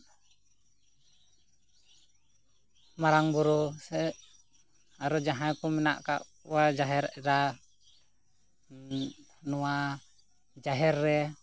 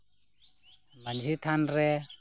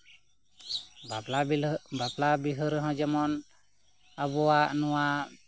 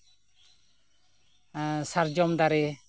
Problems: constant background noise, background conversations at intervals